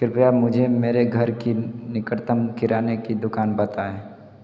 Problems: constant background noise